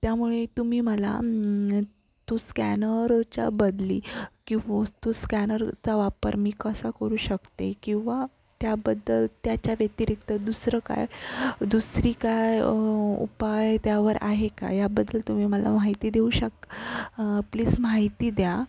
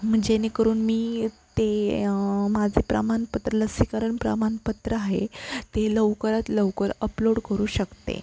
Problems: constant background noise